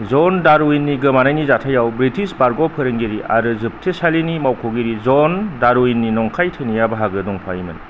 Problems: low volume